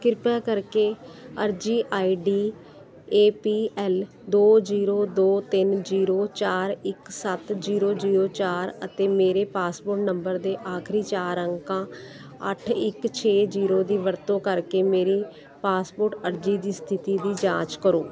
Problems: constant background noise